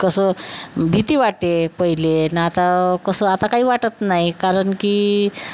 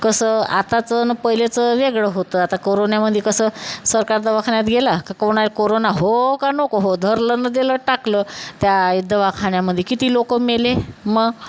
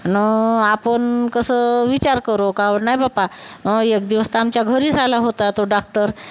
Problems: none marked